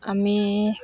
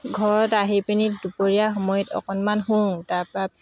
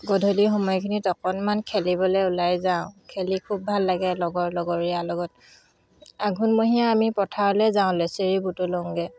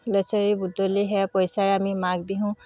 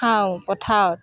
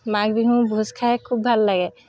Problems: constant background noise